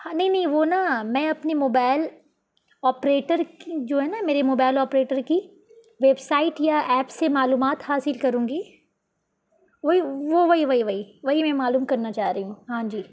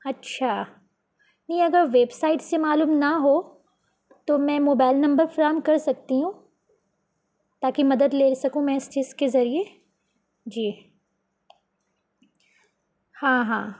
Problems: constant background noise